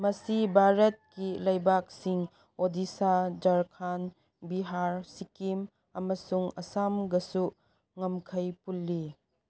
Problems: none marked